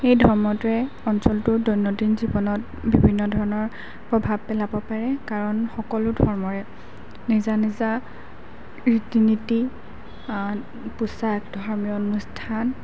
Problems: background sounds at intervals